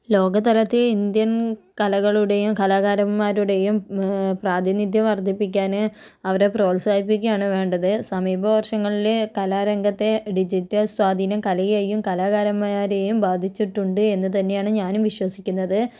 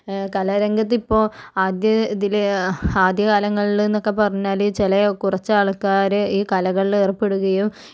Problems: none marked